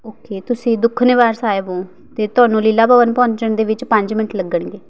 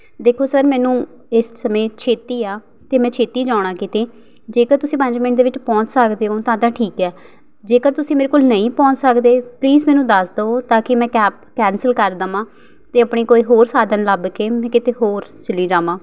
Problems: none marked